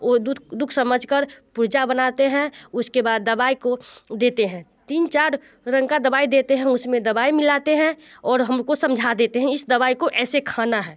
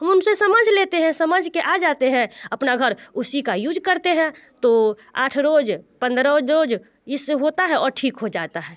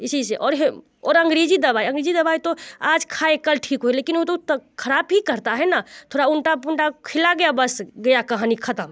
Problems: constant background noise